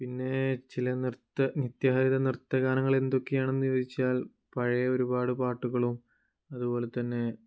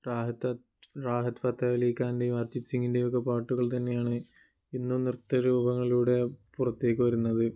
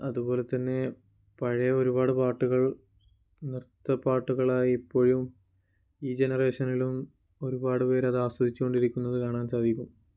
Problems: low volume